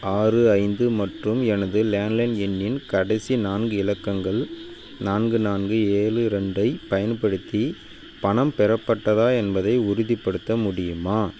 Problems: constant background noise